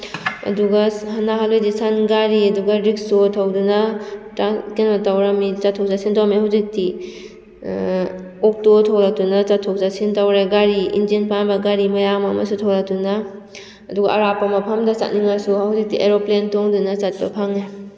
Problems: none marked